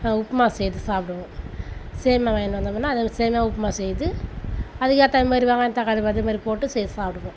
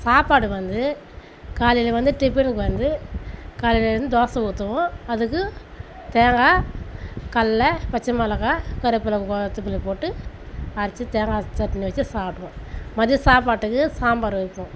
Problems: none marked